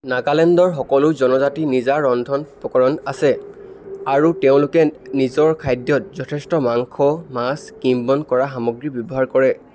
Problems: constant background noise